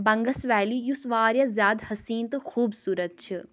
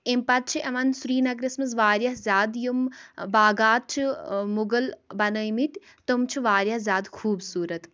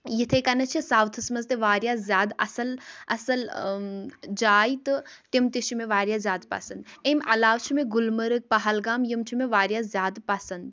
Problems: none marked